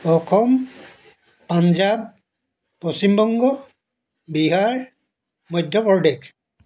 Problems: background sounds at intervals